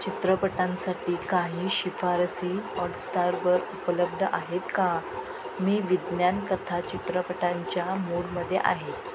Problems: constant background noise, background conversations at intervals